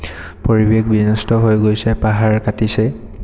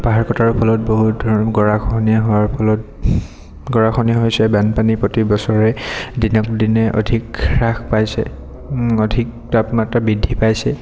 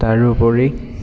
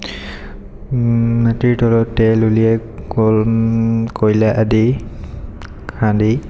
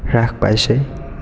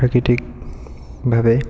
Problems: background sounds at intervals, echo